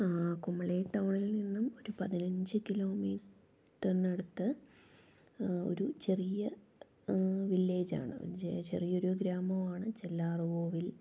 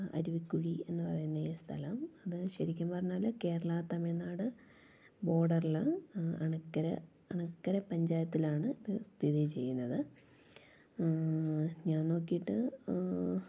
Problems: low volume